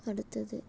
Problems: low volume